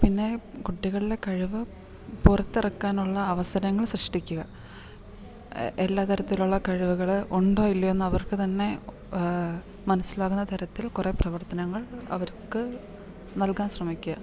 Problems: none marked